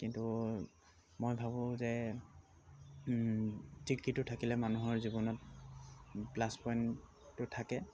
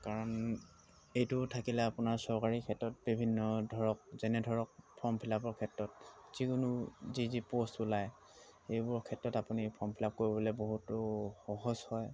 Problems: constant background noise